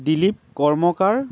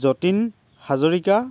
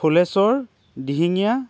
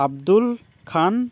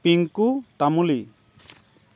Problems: constant background noise, background conversations at intervals